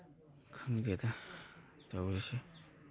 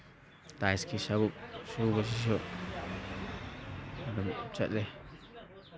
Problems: background conversations at intervals